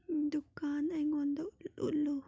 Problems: none marked